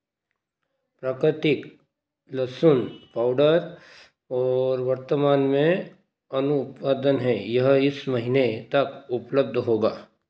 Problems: constant background noise